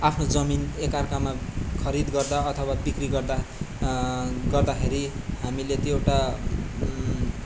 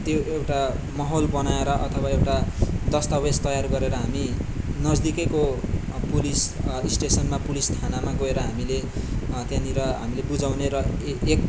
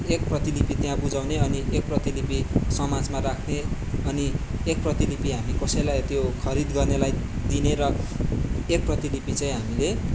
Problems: background sounds at intervals